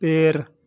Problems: constant background noise